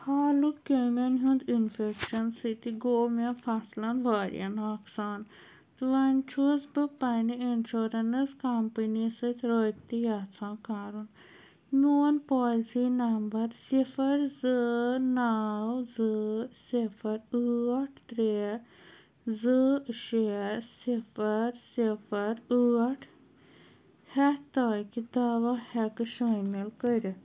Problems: none marked